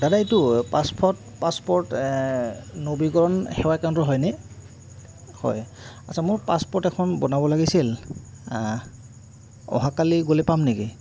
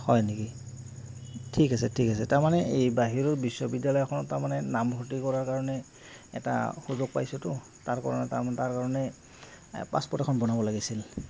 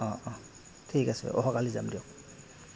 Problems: none marked